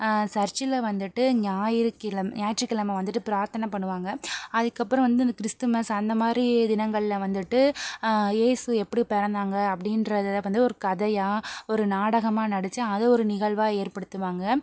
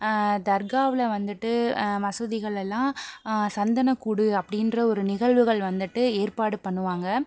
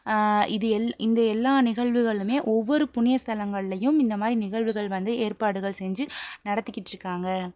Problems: none marked